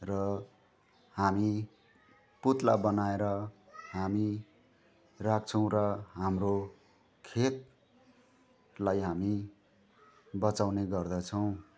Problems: constant background noise